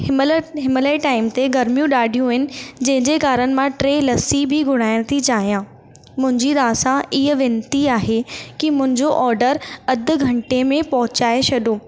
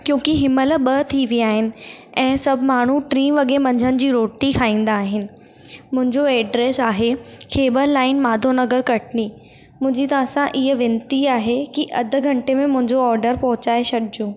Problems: constant background noise, echo